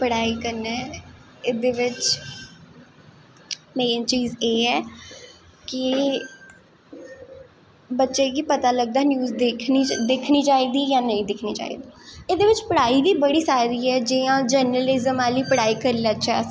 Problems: echo